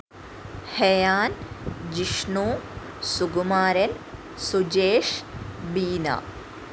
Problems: constant background noise